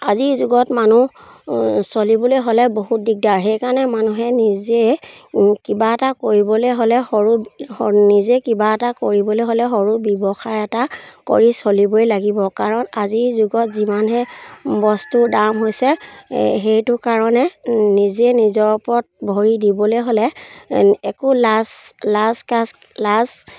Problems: none marked